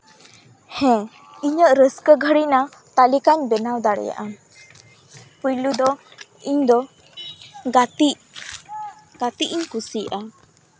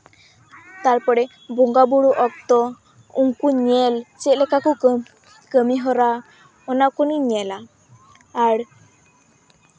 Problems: background sounds at intervals